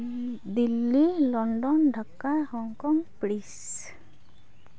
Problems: none marked